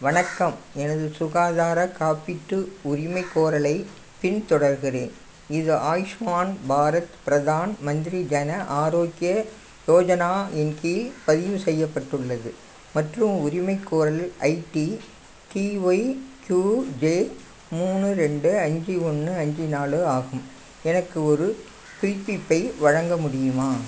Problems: constant background noise